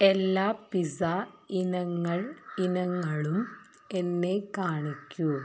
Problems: constant background noise